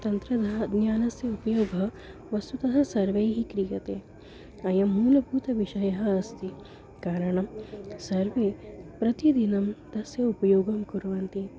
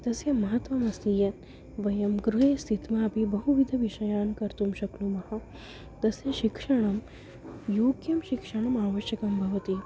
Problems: constant background noise, continuous background conversations